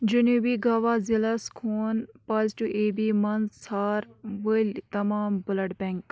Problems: background sounds at intervals